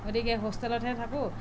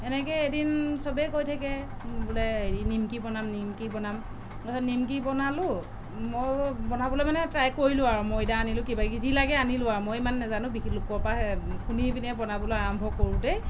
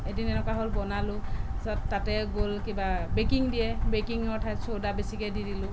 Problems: constant background noise